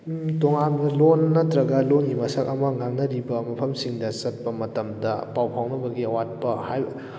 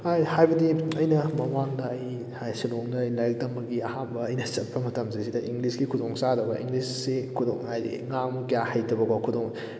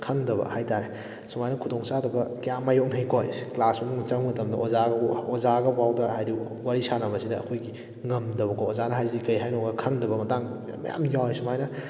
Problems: background sounds at intervals